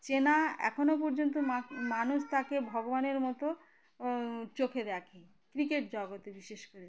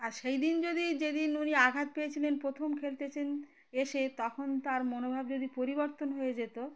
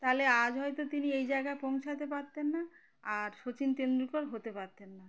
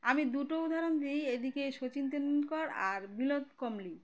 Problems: constant background noise, continuous background conversations